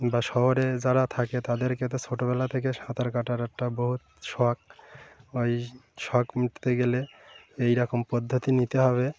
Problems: constant background noise